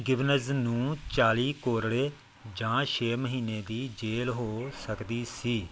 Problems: background sounds at intervals